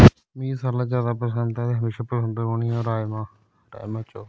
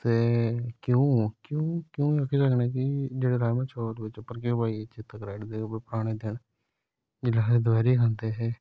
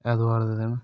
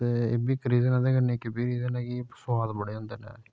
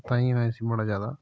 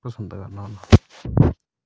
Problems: none marked